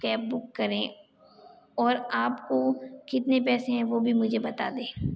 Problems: constant background noise